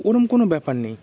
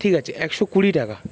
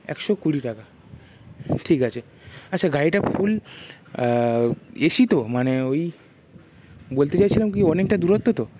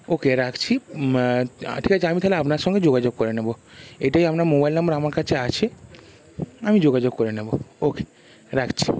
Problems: constant background noise